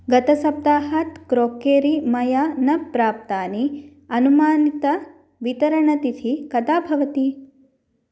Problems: none marked